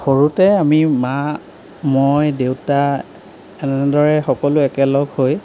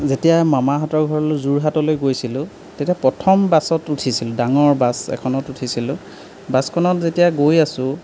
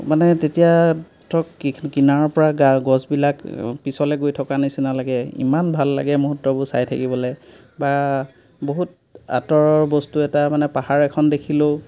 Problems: background sounds at intervals